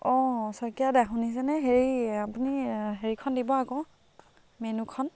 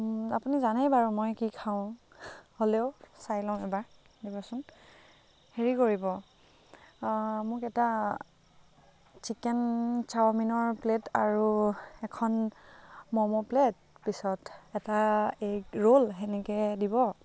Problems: background conversations at intervals